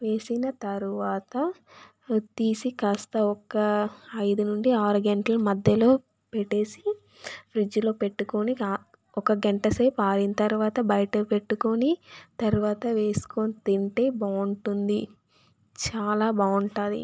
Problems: background sounds at intervals